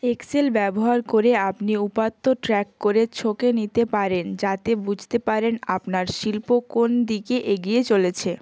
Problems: constant background noise